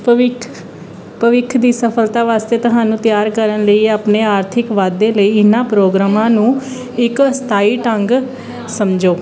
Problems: none marked